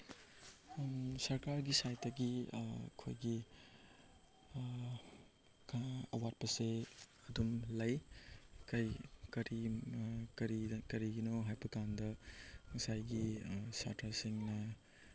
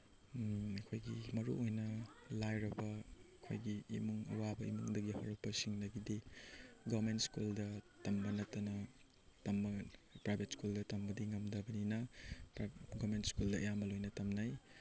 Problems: background sounds at intervals